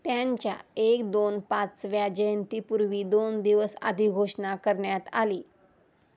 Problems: none marked